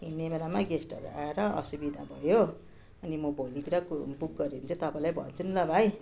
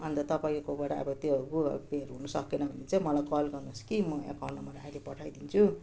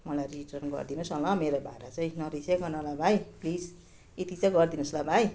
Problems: continuous background conversations